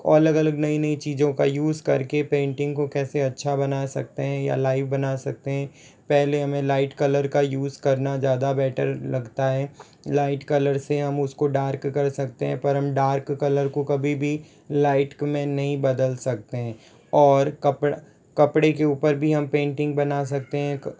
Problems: none marked